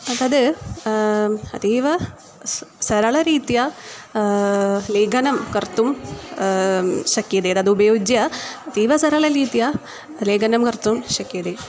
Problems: constant background noise